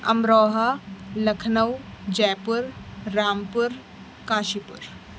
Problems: constant background noise